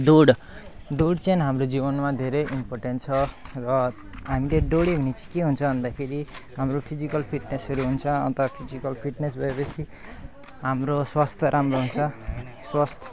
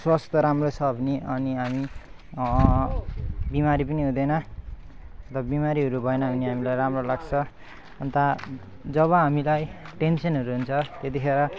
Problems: background sounds at intervals